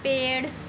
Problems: none marked